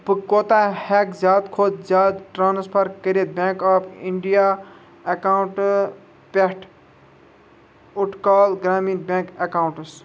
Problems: constant background noise